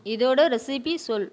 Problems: background sounds at intervals